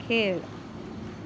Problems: constant background noise